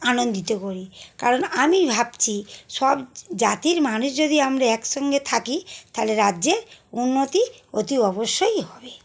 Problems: constant background noise